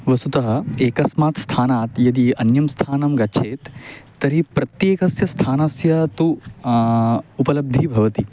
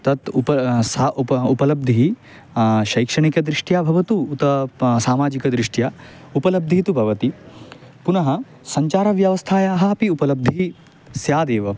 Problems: none marked